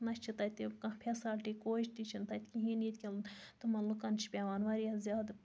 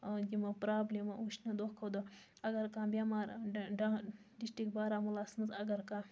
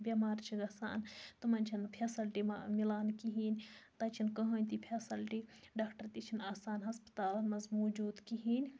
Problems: constant background noise